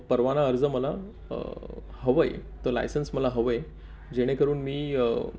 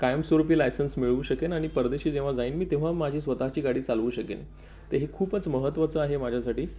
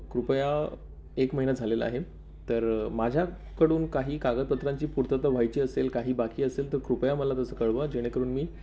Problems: none marked